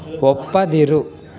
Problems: none marked